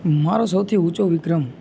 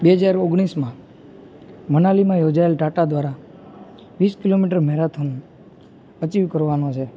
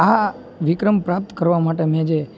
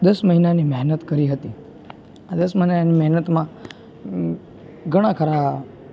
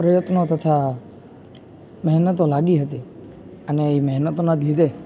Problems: constant background noise